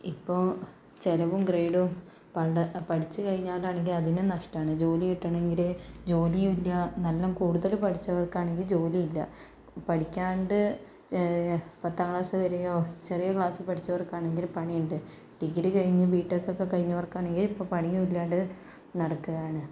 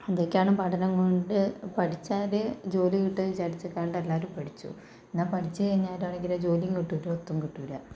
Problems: none marked